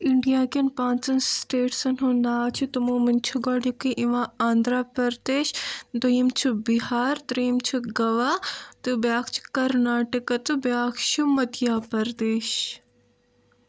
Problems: none marked